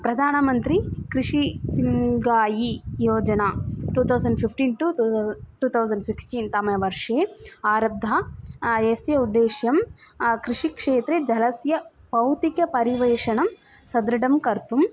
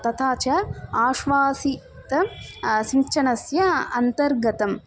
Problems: constant background noise